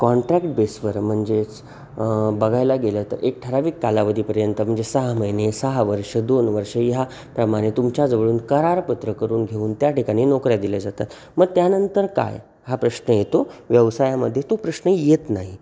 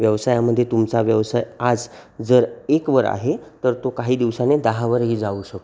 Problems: none marked